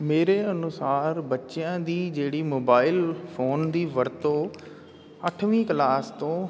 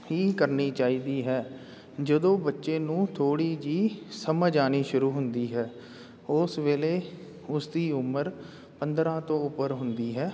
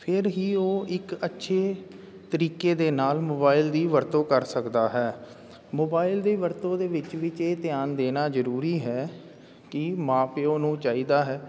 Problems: constant background noise